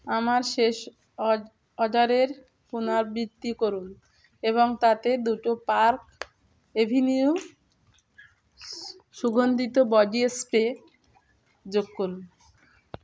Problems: constant background noise, continuous background conversations